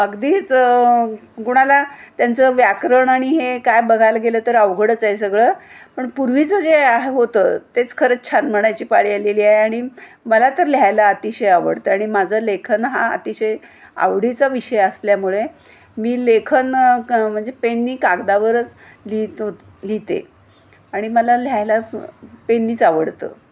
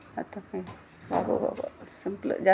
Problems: none marked